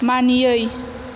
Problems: constant background noise